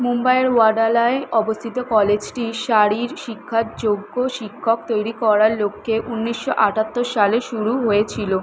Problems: constant background noise